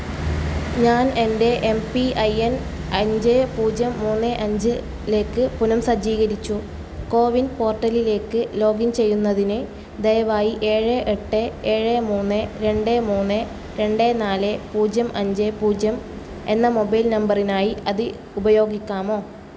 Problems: constant background noise